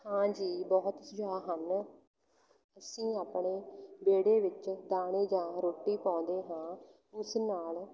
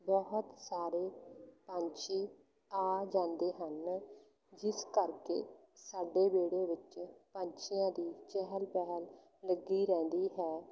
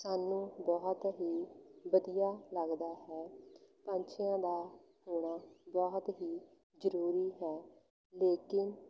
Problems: none marked